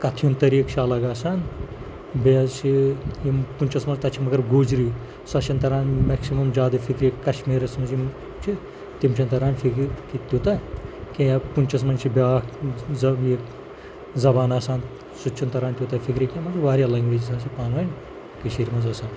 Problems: constant background noise, low volume